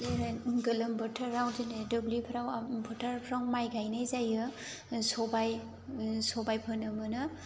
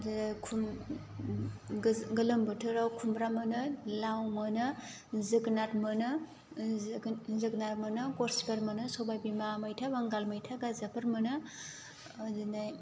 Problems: constant background noise